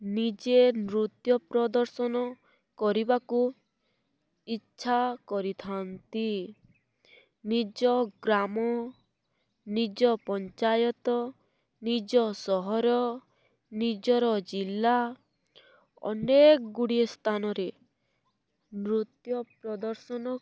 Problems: none marked